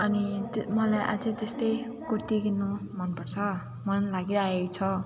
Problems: continuous background conversations